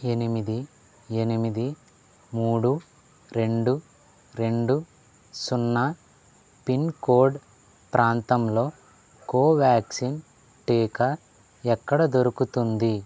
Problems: low volume